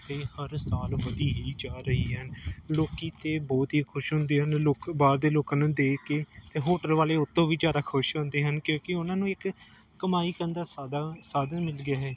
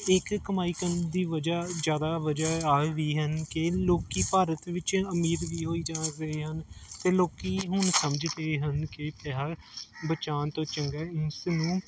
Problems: none marked